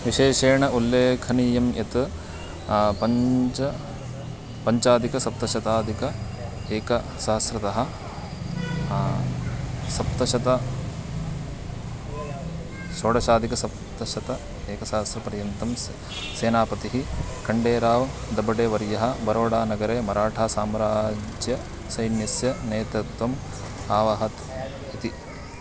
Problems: none marked